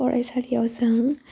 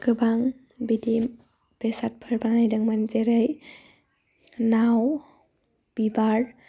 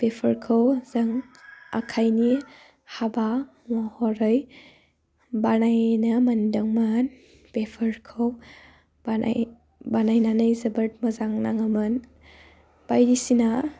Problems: low volume